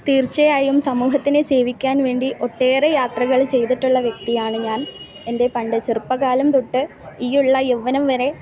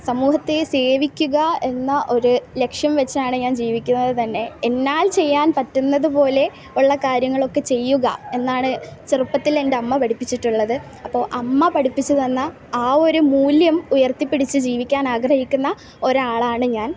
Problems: background sounds at intervals